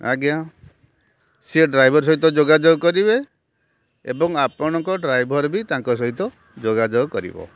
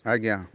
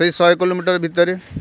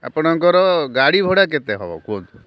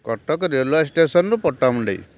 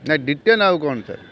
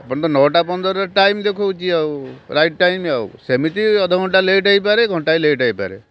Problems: constant background noise